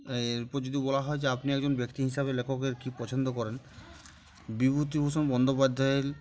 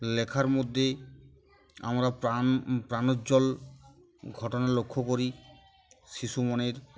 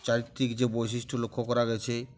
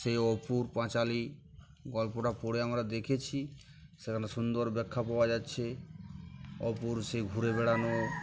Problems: background sounds at intervals, background conversations at intervals